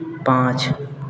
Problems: constant background noise